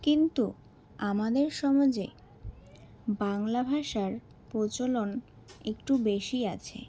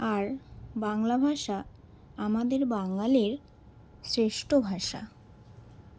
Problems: none marked